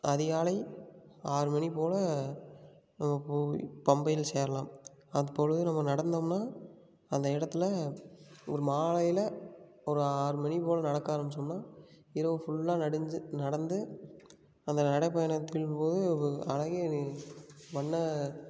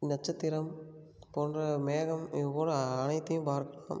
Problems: none marked